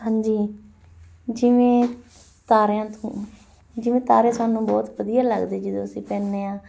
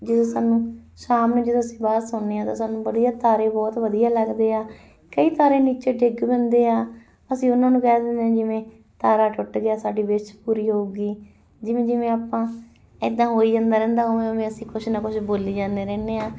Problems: none marked